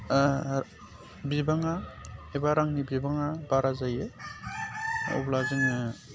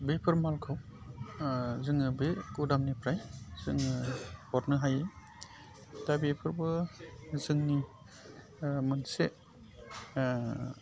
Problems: constant background noise